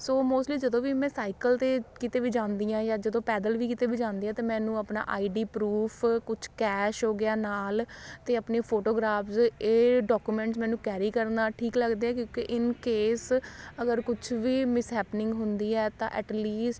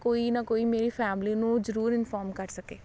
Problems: constant background noise